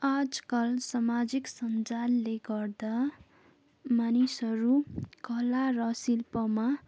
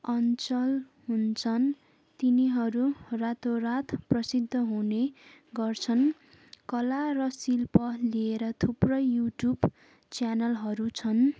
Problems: none marked